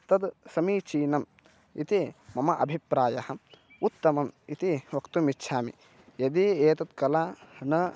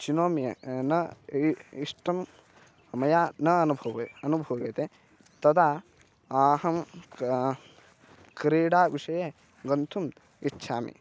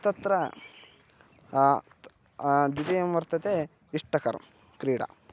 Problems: constant background noise